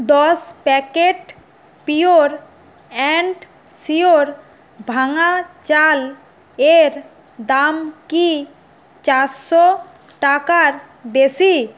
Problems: none marked